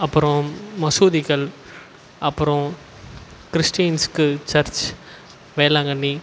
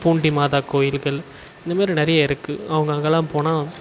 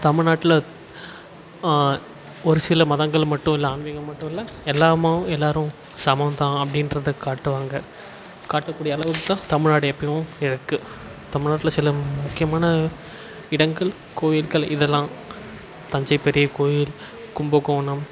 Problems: constant background noise